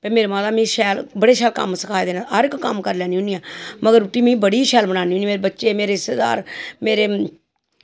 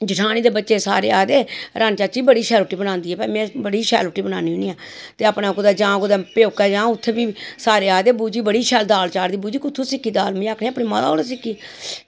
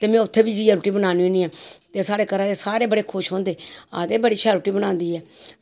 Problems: constant background noise